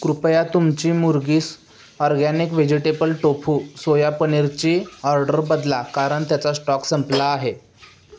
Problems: none marked